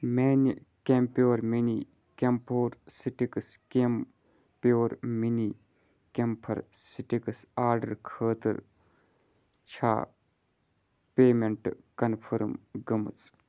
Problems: none marked